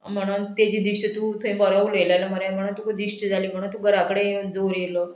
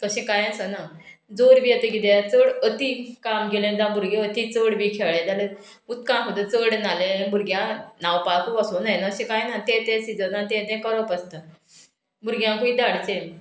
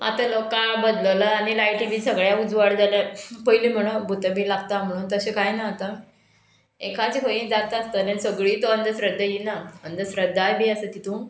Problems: background sounds at intervals